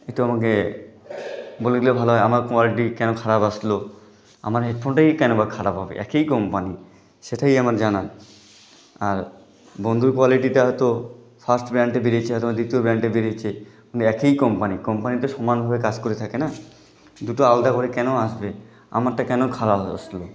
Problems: none marked